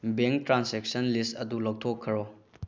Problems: low volume